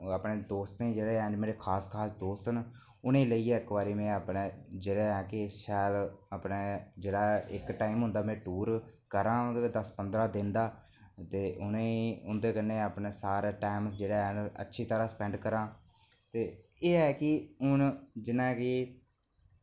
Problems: none marked